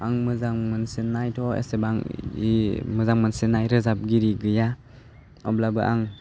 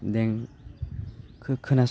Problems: constant background noise